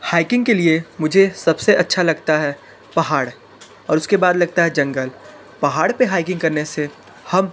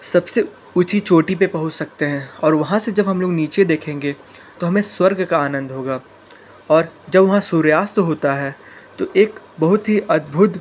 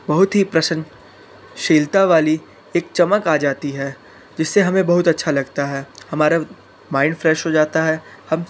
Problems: constant background noise, continuous background conversations